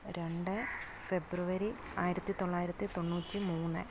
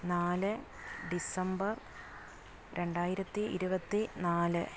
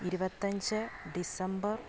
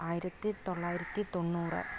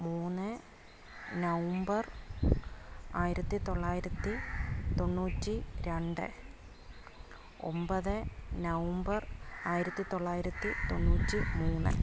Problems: constant background noise, low volume